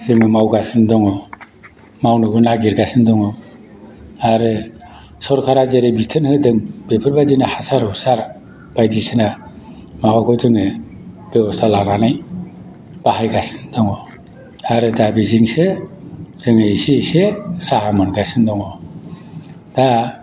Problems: constant background noise